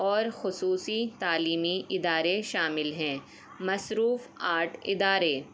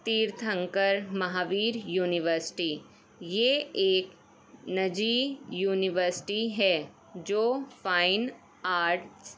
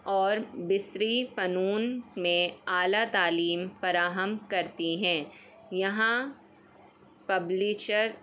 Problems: background sounds at intervals